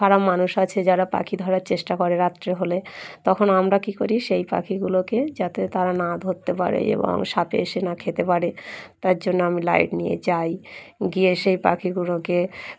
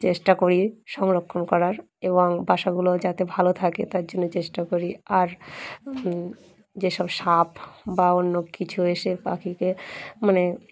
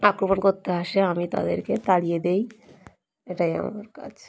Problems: none marked